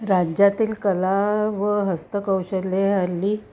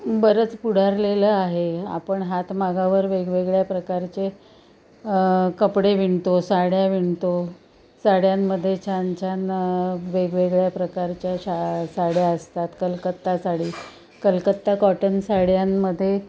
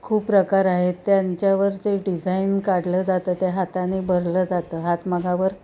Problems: constant background noise, continuous background conversations